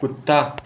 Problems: constant background noise